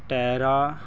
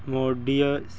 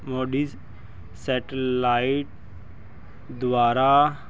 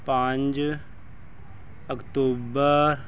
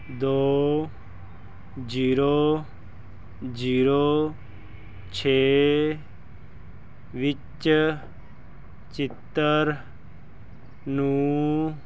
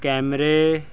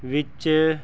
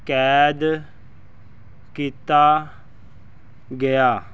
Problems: none marked